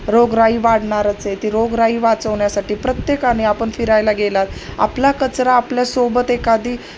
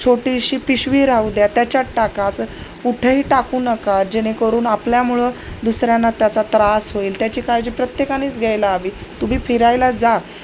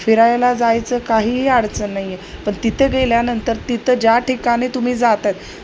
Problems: none marked